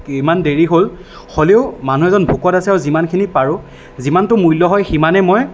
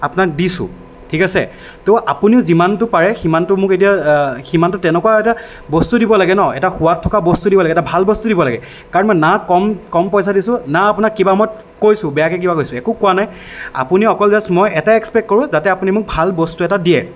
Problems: none marked